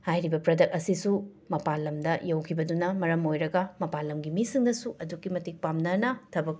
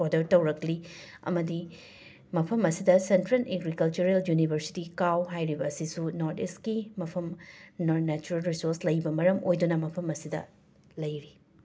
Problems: constant background noise